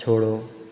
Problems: echo